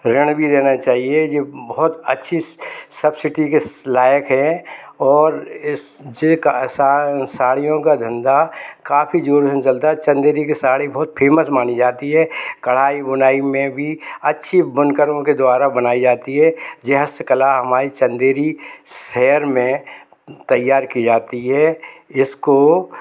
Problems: none marked